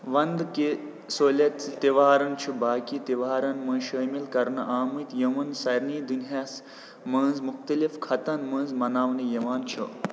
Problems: none marked